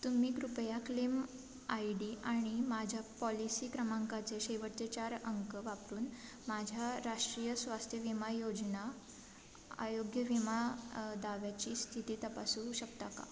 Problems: constant background noise, background conversations at intervals